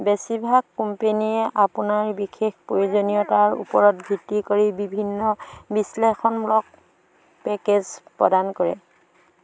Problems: constant background noise, continuous background conversations